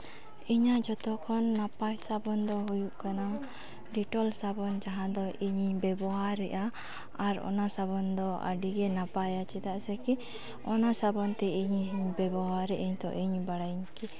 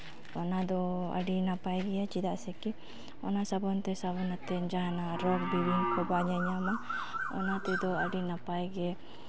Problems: background conversations at intervals